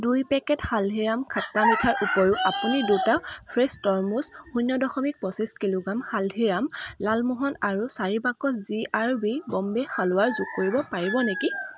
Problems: constant background noise